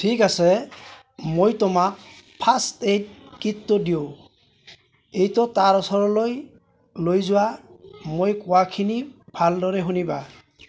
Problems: constant background noise